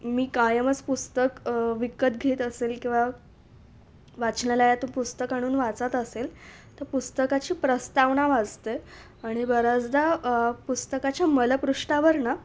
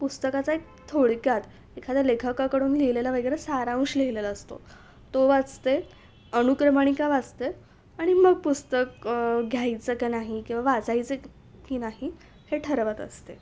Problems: background sounds at intervals